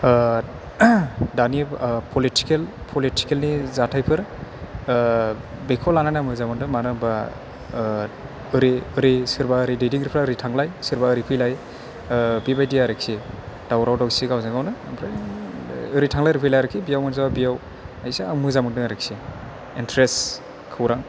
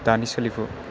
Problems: none marked